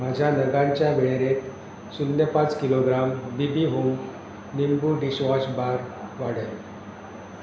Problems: none marked